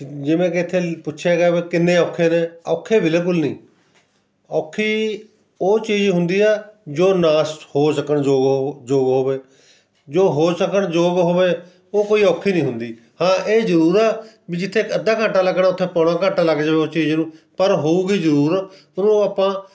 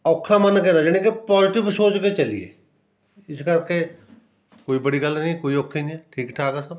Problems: background sounds at intervals